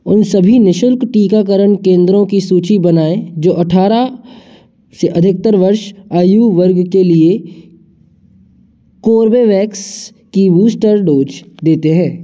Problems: background sounds at intervals, echo